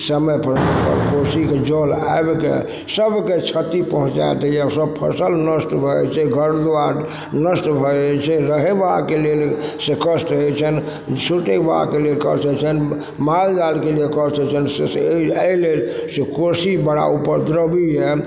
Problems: background sounds at intervals, background conversations at intervals